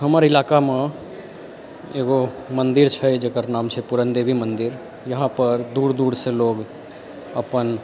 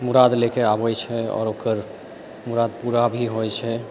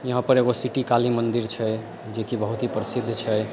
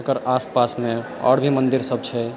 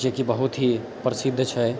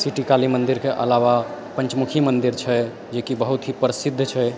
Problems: background sounds at intervals, background conversations at intervals